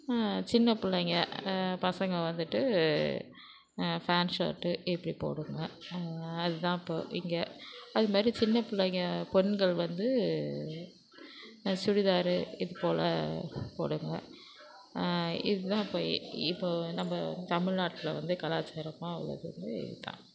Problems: constant background noise